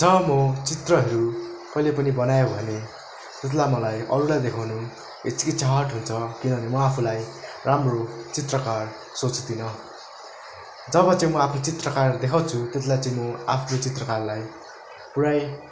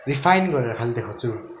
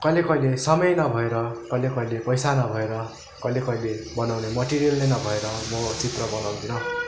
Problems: background sounds at intervals